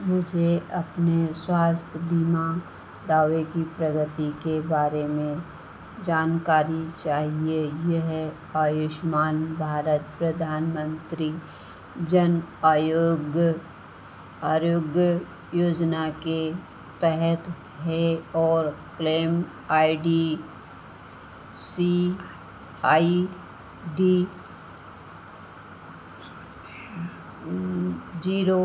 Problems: constant background noise, echo